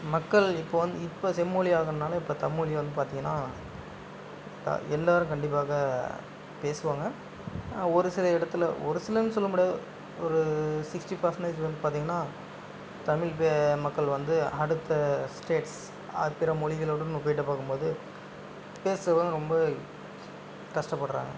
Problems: constant background noise